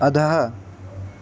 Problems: constant background noise